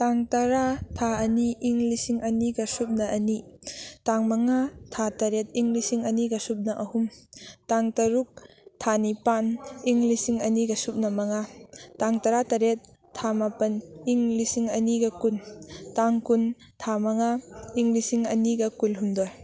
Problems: background sounds at intervals